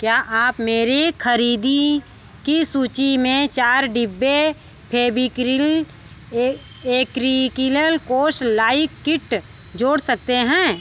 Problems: background sounds at intervals